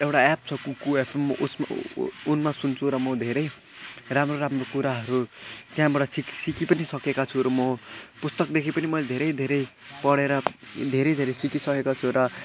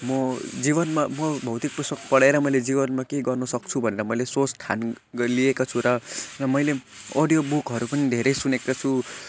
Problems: constant background noise